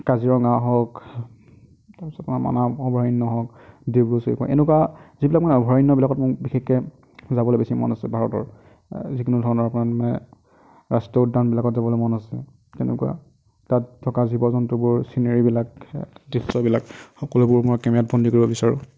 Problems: none marked